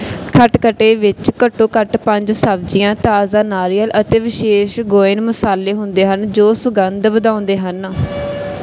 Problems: none marked